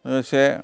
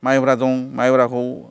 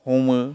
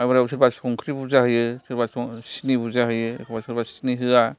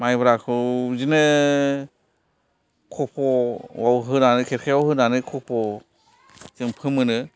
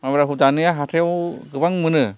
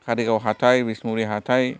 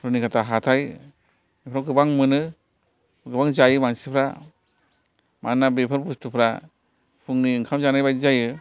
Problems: background sounds at intervals, continuous background conversations